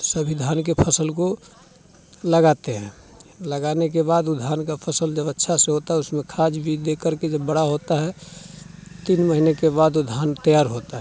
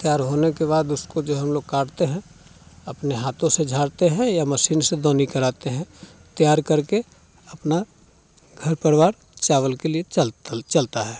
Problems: constant background noise, continuous background conversations